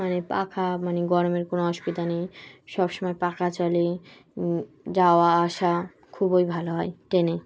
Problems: constant background noise